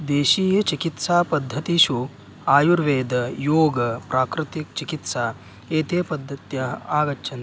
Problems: constant background noise